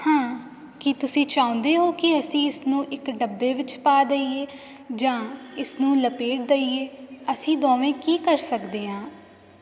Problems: none marked